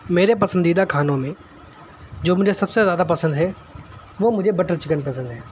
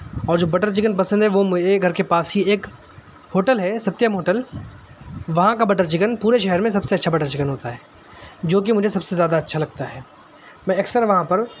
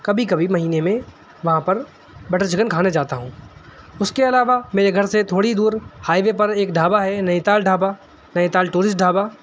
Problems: background sounds at intervals